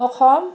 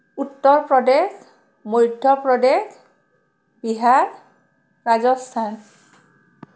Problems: none marked